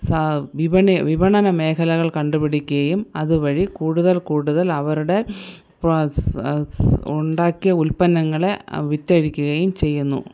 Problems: none marked